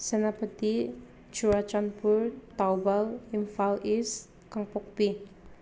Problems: background sounds at intervals